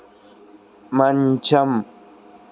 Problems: constant background noise